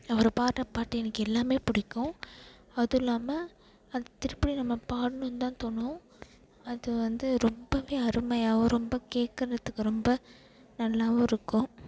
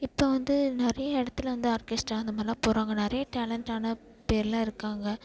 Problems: background sounds at intervals